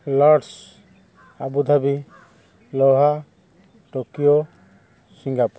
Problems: constant background noise